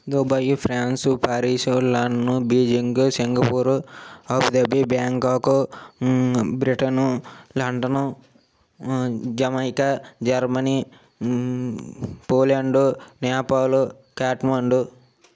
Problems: none marked